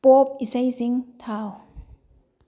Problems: low volume